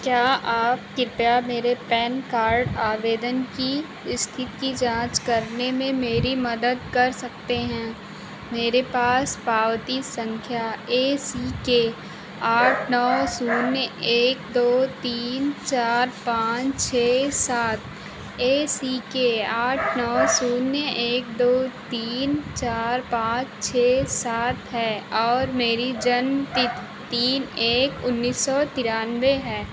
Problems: none marked